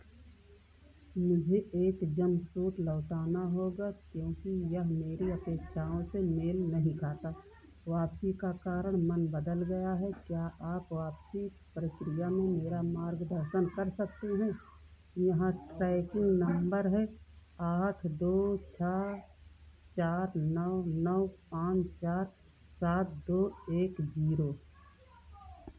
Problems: constant background noise